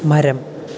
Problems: constant background noise